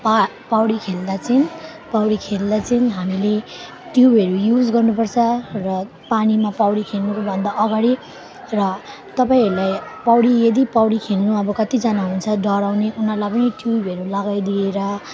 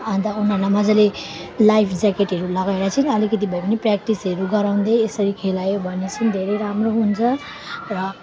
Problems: continuous background conversations